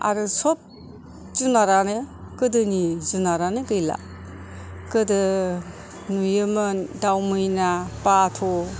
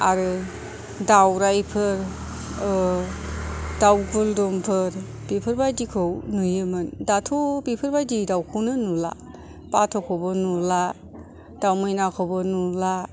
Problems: none marked